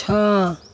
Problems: constant background noise